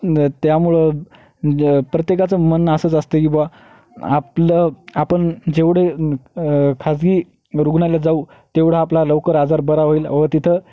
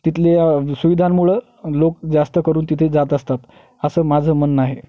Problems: background sounds at intervals